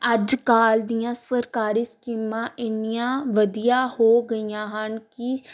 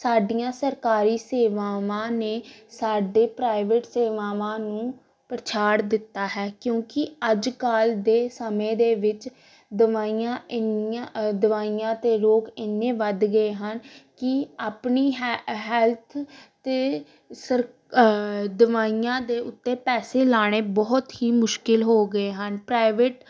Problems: none marked